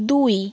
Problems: constant background noise, background conversations at intervals